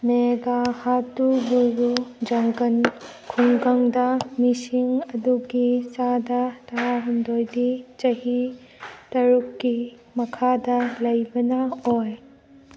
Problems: background sounds at intervals